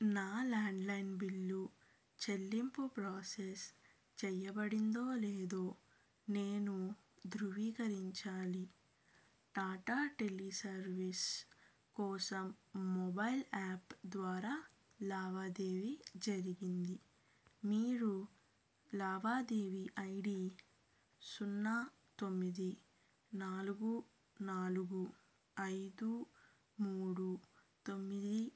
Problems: low volume